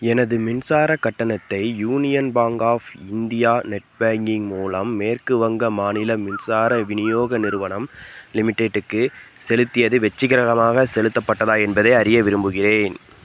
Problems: background sounds at intervals